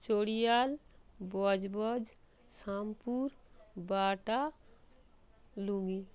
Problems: none marked